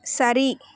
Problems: none marked